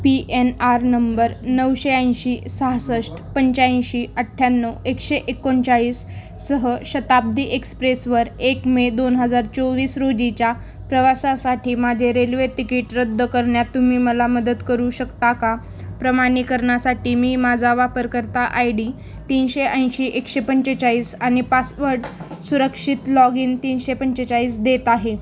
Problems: background sounds at intervals